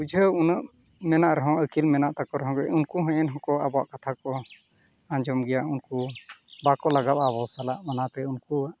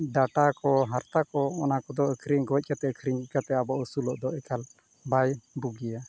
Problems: constant background noise